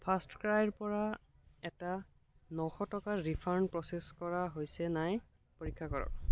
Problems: none marked